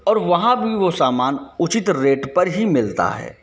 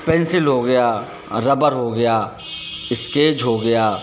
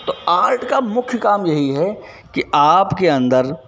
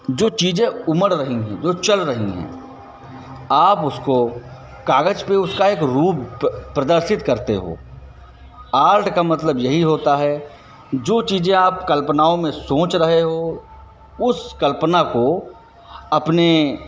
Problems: none marked